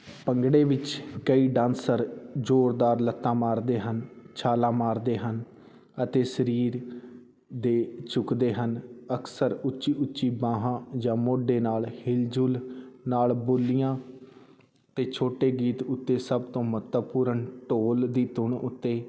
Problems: none marked